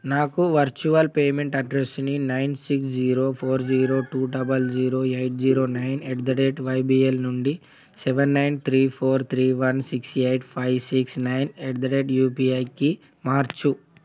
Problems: none marked